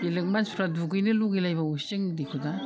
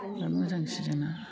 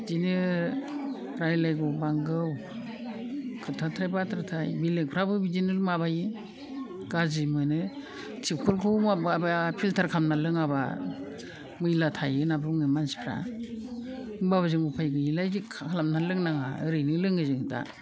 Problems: low volume